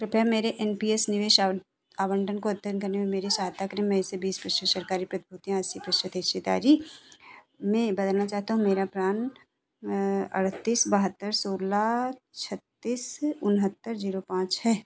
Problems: none marked